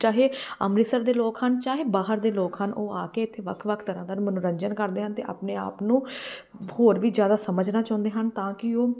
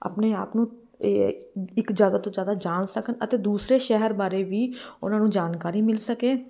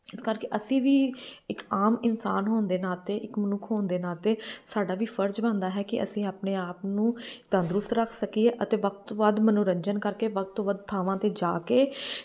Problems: background sounds at intervals